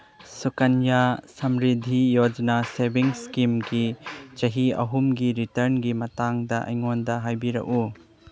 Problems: background sounds at intervals